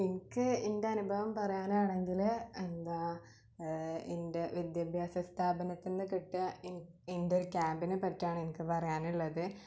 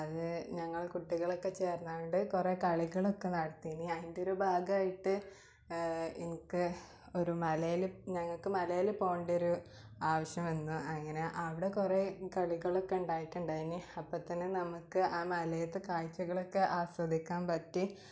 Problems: low volume